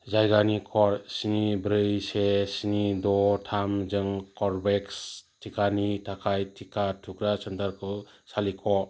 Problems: low volume